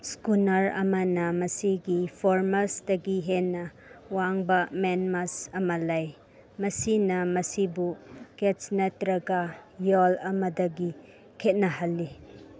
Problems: none marked